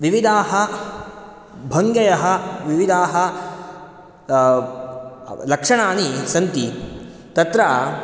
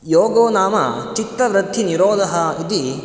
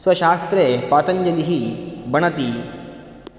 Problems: none marked